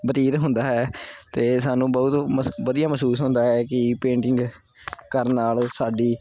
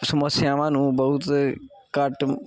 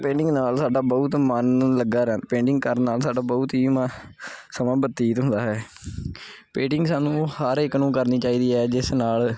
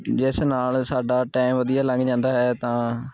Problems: background conversations at intervals